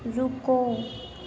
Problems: constant background noise